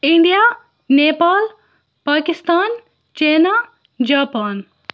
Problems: background sounds at intervals, background conversations at intervals